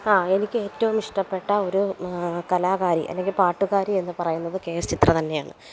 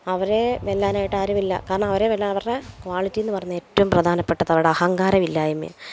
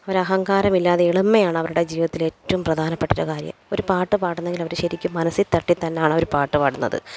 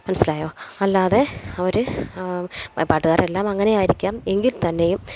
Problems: background sounds at intervals